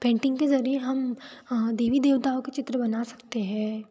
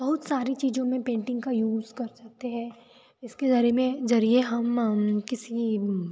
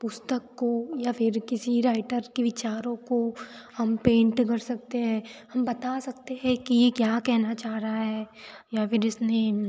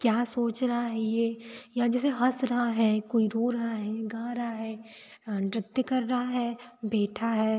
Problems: constant background noise